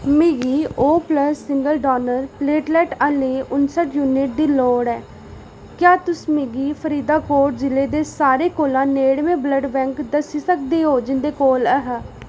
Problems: none marked